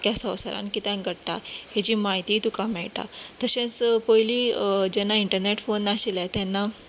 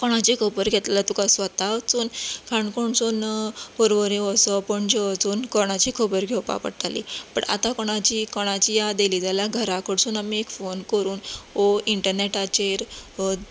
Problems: none marked